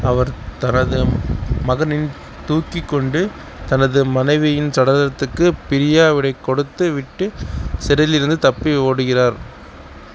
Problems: constant background noise